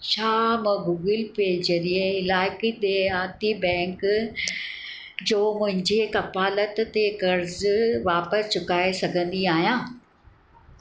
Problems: background sounds at intervals